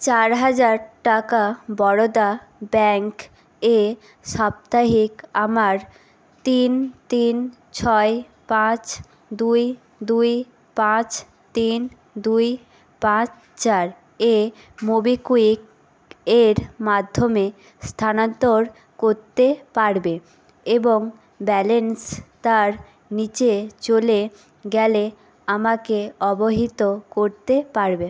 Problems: constant background noise